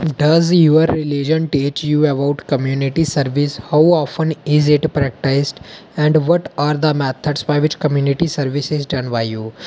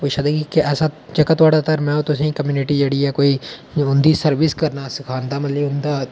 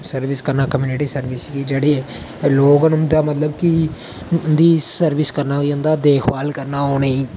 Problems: none marked